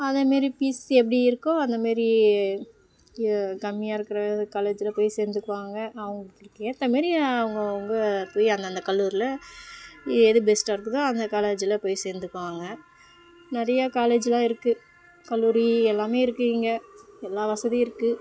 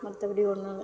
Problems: none marked